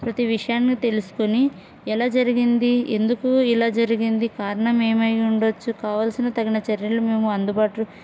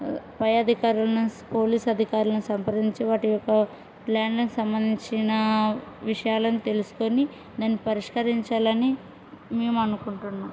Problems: none marked